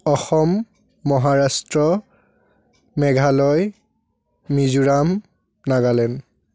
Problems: background sounds at intervals, background conversations at intervals